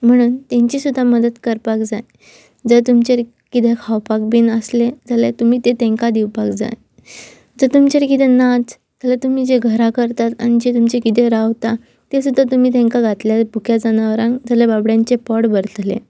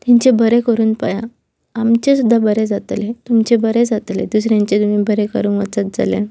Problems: constant background noise